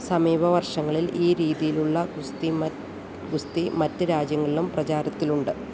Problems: constant background noise